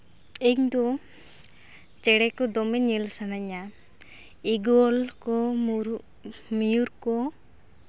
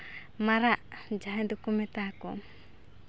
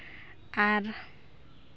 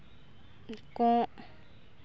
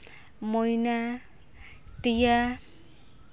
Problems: background sounds at intervals